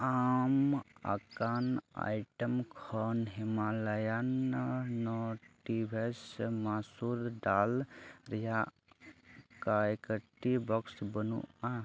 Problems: low volume